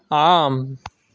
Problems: none marked